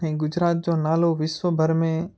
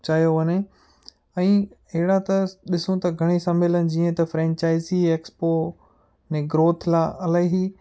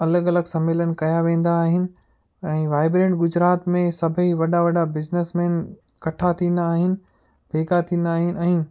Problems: none marked